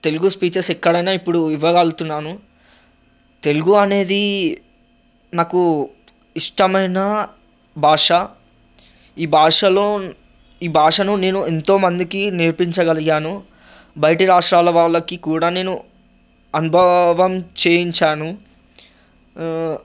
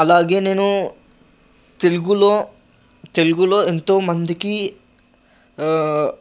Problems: none marked